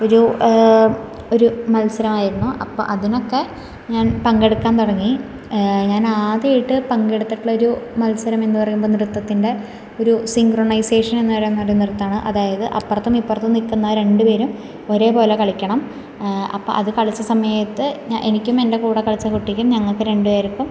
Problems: none marked